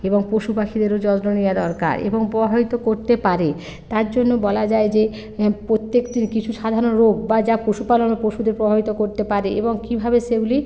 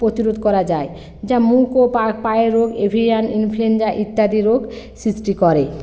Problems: constant background noise